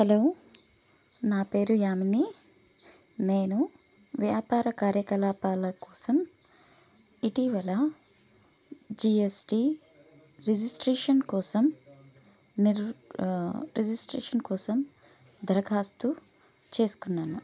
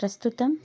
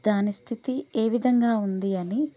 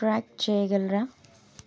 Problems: none marked